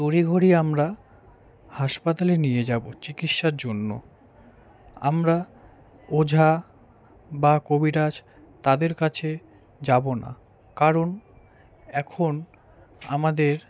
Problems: background conversations at intervals